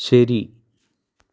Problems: low volume